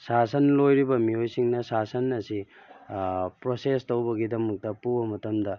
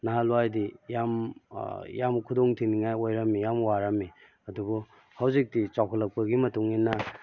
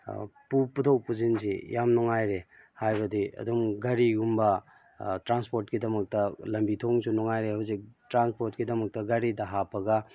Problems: none marked